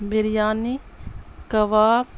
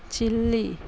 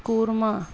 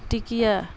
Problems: constant background noise, low volume